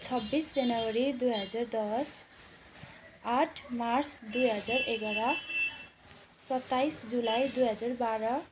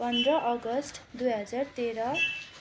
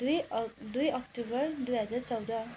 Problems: constant background noise